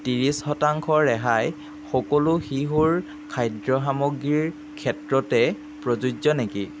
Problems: constant background noise